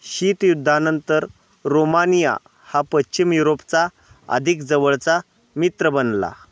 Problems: constant background noise